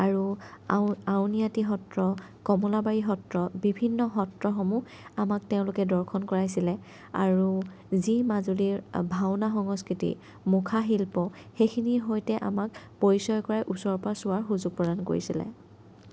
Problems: none marked